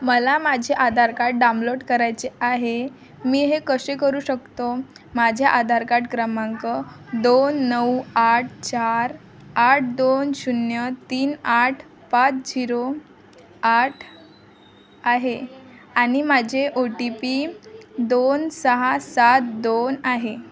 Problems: constant background noise, background conversations at intervals